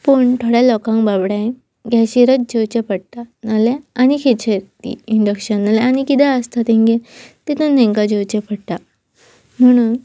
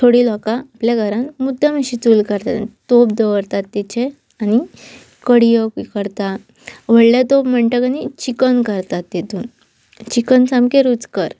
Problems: none marked